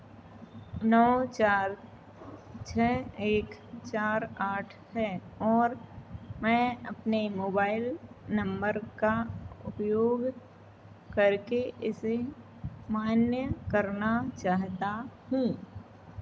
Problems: none marked